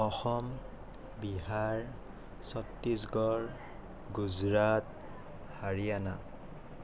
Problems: none marked